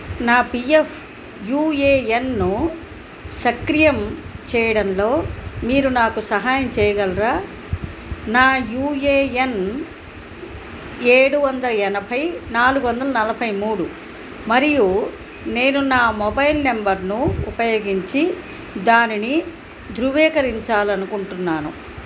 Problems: none marked